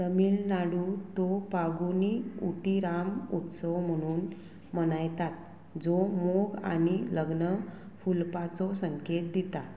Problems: constant background noise